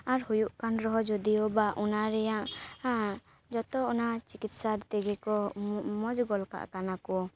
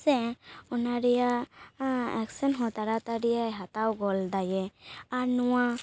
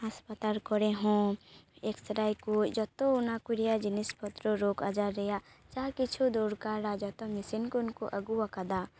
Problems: background sounds at intervals